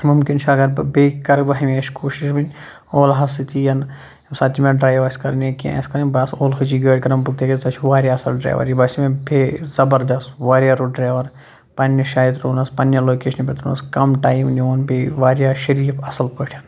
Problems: none marked